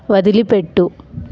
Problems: constant background noise